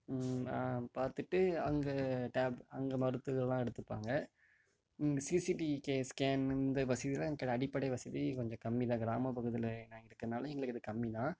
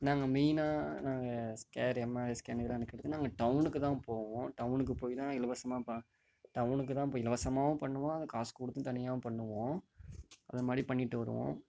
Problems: background sounds at intervals, low volume